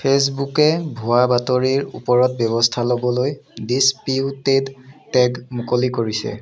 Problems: background conversations at intervals